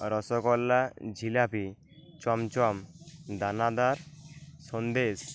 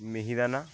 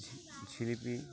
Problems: constant background noise